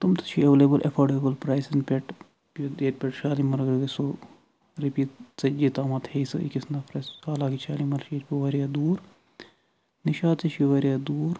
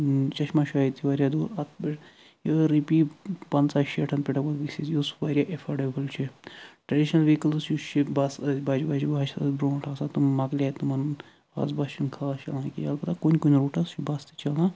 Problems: none marked